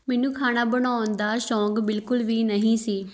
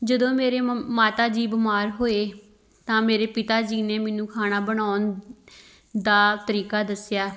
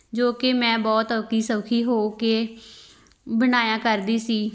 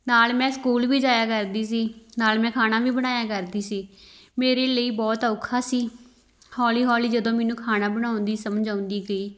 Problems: none marked